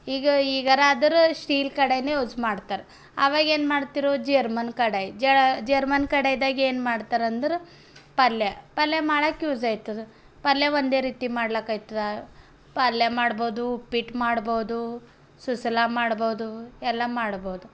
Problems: background sounds at intervals